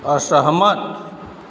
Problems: background sounds at intervals